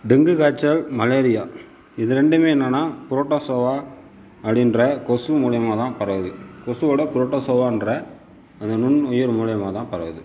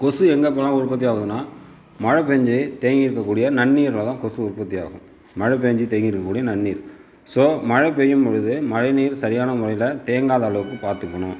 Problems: none marked